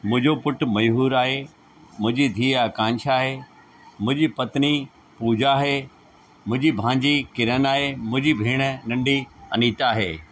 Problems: constant background noise